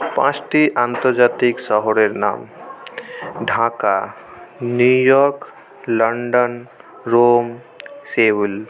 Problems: none marked